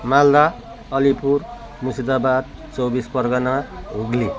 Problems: constant background noise, continuous background conversations